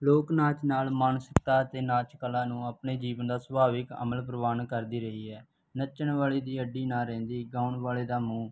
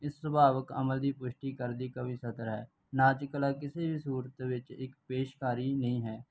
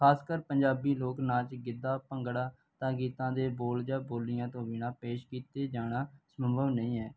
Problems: background sounds at intervals